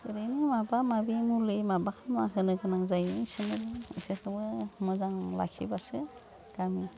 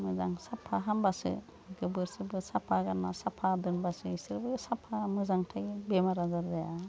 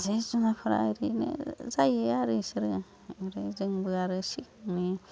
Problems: constant background noise